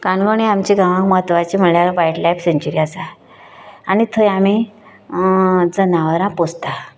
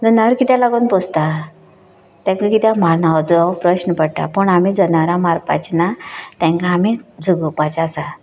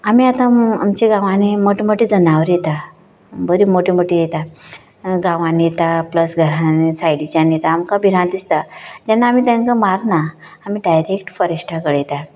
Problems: background sounds at intervals